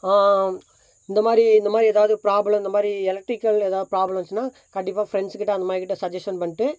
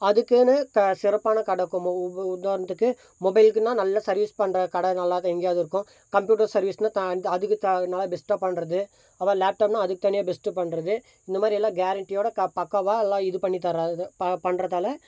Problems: constant background noise